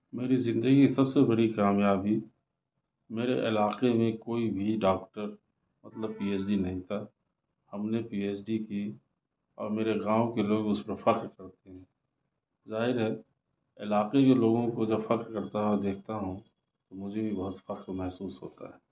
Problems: none marked